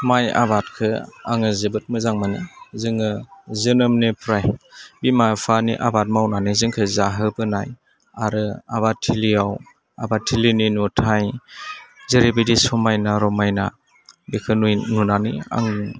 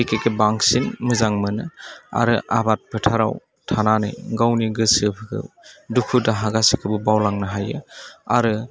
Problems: constant background noise